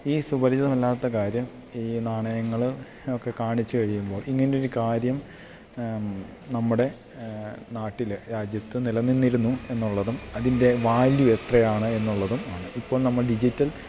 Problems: constant background noise